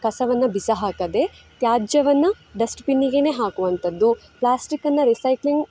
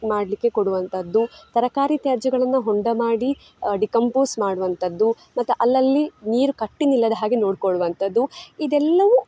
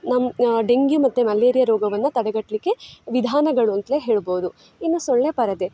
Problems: background sounds at intervals